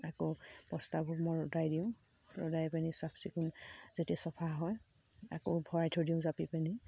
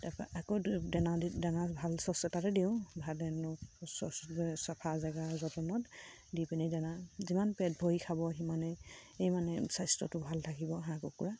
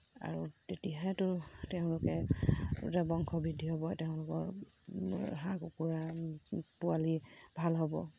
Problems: low volume